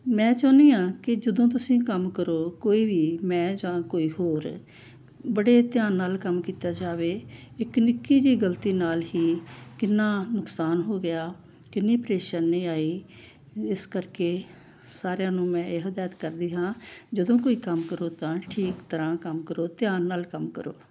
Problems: none marked